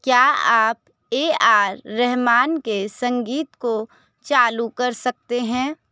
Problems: background conversations at intervals